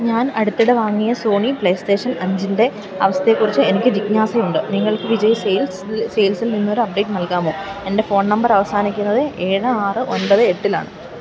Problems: background sounds at intervals